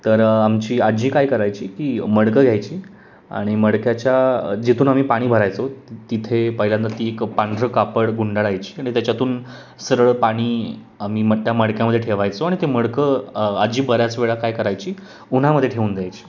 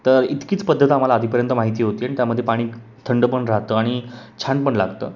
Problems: constant background noise, background conversations at intervals